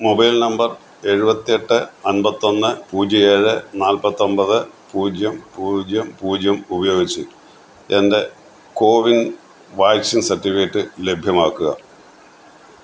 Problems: constant background noise